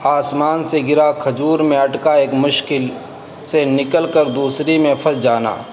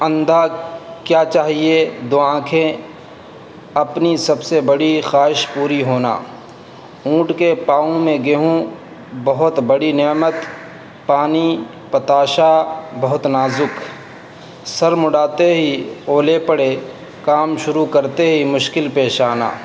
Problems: constant background noise